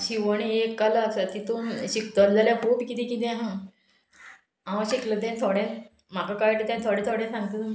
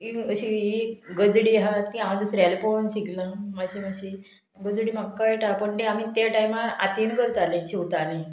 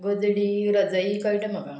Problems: background sounds at intervals